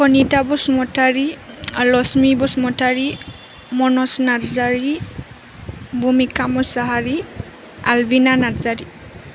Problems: constant background noise